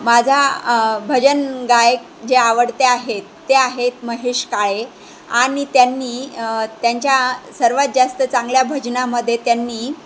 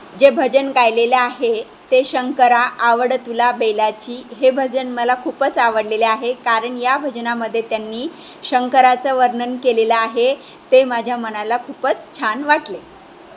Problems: constant background noise